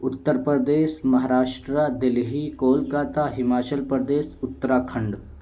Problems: constant background noise